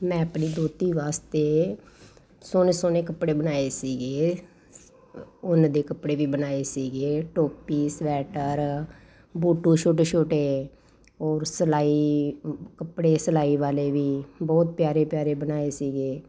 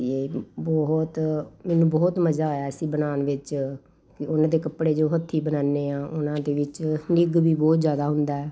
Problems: constant background noise